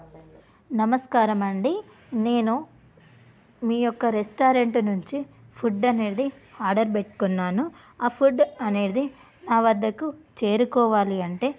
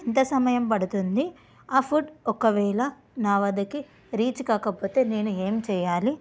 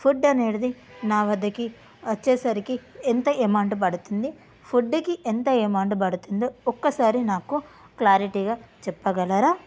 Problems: background sounds at intervals